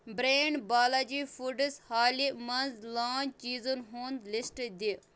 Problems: none marked